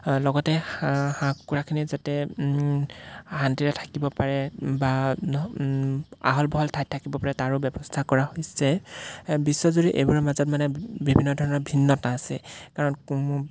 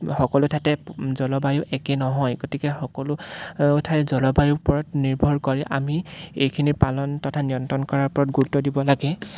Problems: background sounds at intervals